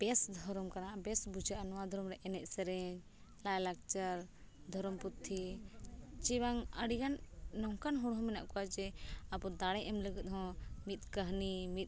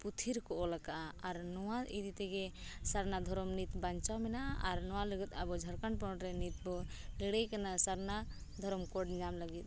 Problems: none marked